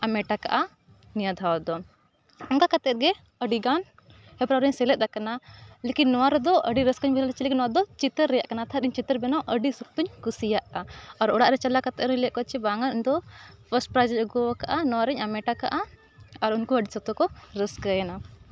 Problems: background sounds at intervals